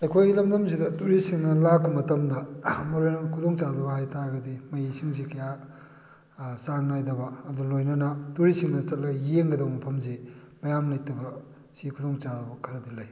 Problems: none marked